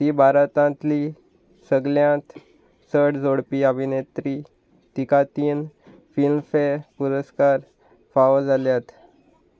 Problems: constant background noise